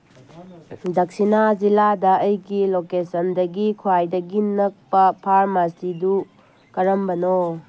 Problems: background sounds at intervals